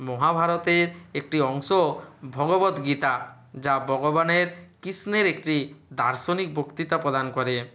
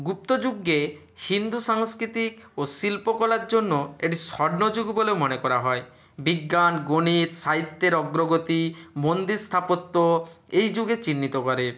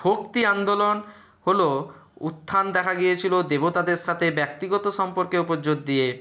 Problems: none marked